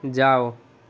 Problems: constant background noise